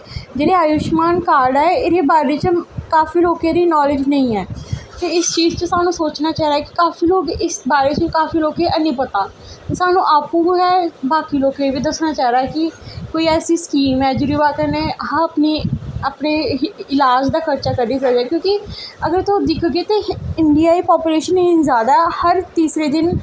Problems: none marked